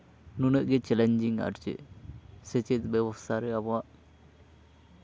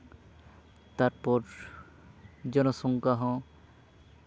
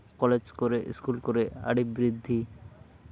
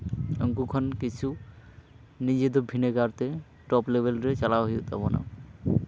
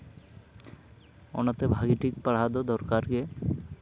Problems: constant background noise, continuous background conversations